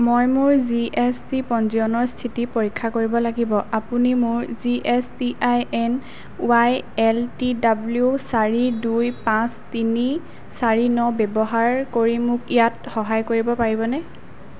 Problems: none marked